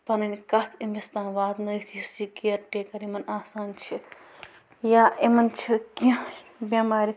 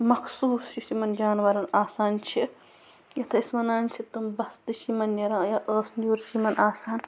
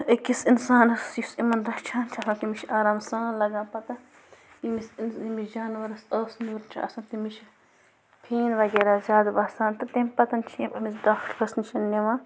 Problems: constant background noise